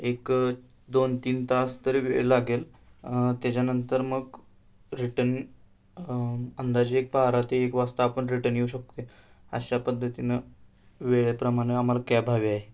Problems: background sounds at intervals